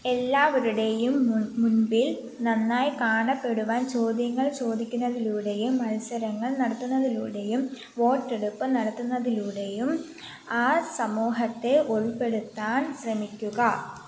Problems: none marked